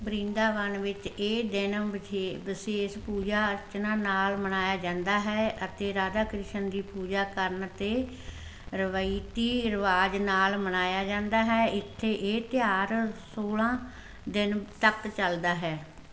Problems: constant background noise